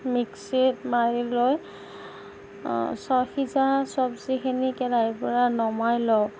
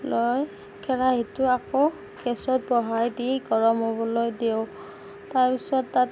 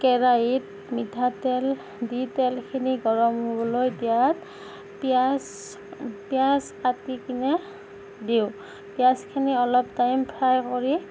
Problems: none marked